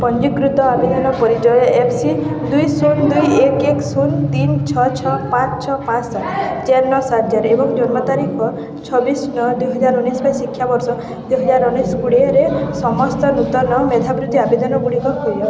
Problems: constant background noise